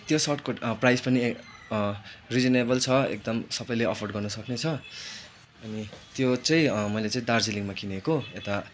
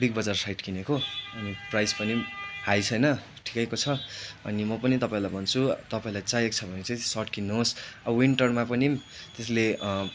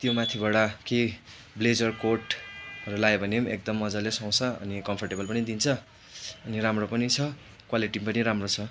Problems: constant background noise